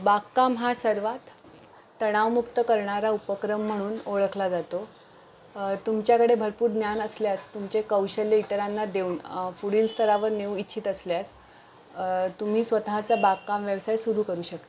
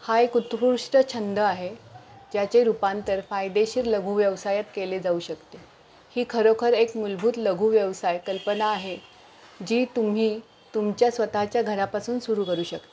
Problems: background sounds at intervals